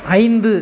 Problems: constant background noise